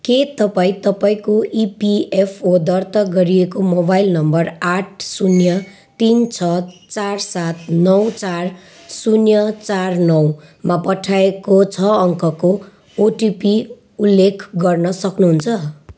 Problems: constant background noise